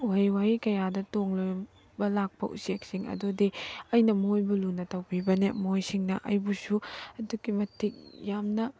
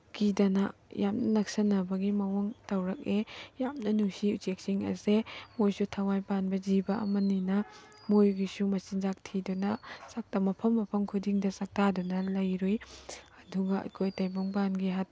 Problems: background sounds at intervals